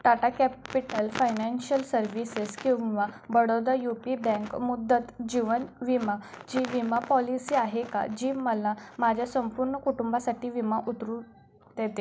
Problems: background sounds at intervals